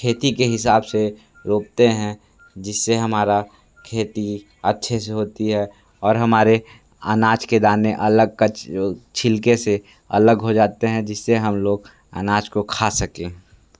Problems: background sounds at intervals